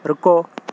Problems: constant background noise